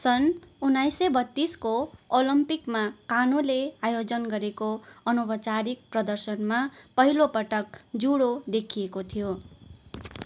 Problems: background conversations at intervals